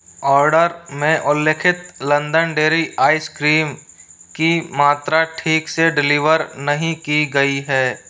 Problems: constant background noise